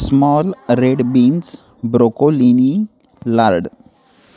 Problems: constant background noise, continuous background conversations